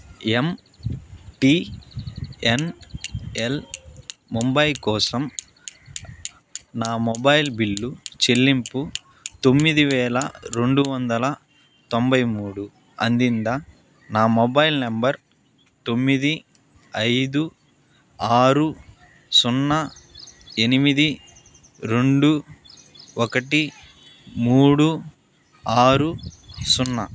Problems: none marked